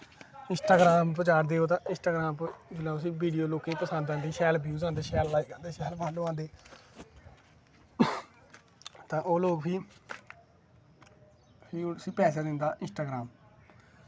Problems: constant background noise